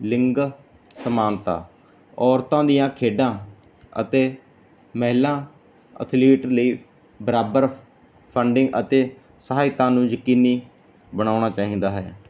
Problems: none marked